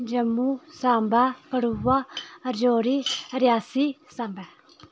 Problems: constant background noise